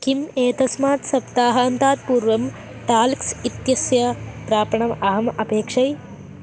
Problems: none marked